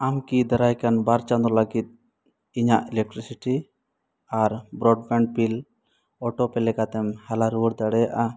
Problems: constant background noise